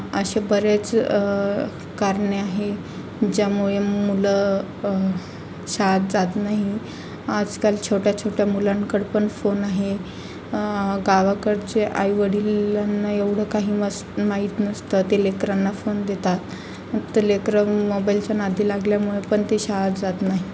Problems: constant background noise